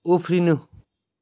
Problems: none marked